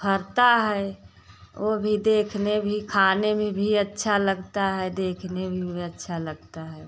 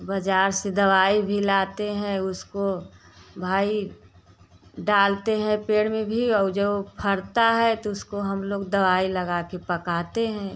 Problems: constant background noise